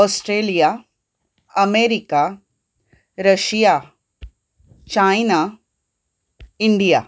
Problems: background sounds at intervals